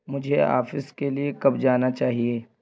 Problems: constant background noise